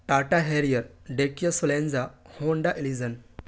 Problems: none marked